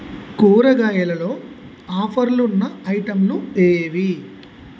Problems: constant background noise